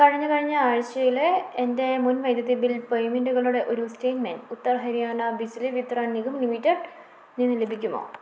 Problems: none marked